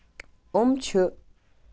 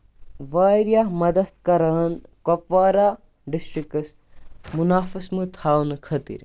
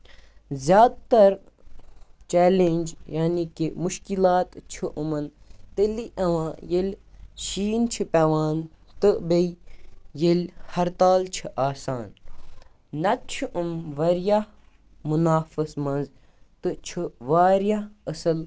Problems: background sounds at intervals